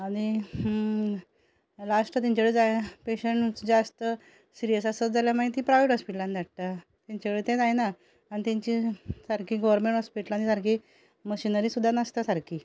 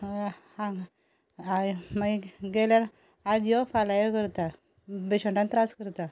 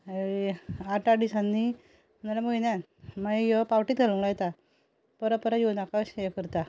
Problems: none marked